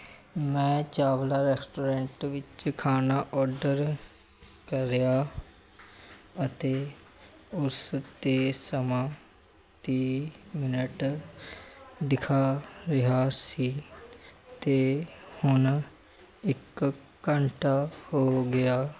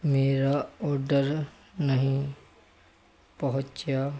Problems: constant background noise